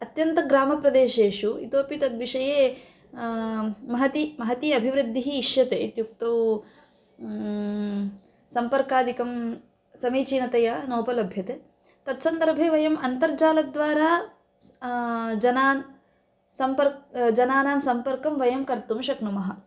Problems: none marked